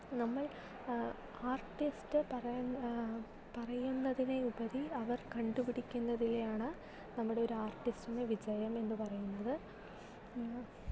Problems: low volume